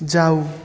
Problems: constant background noise